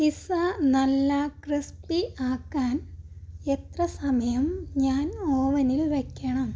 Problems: low volume